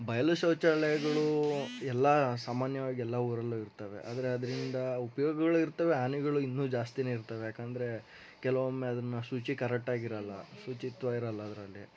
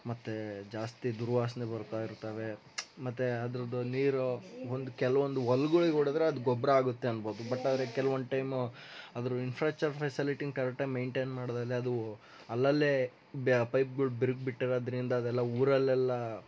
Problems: background sounds at intervals